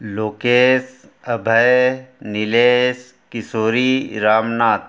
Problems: none marked